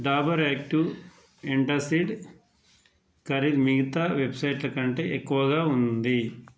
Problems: none marked